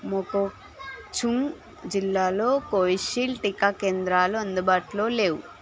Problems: constant background noise, background conversations at intervals